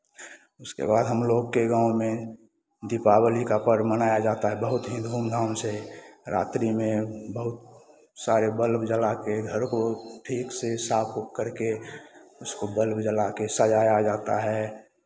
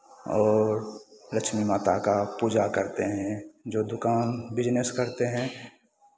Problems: none marked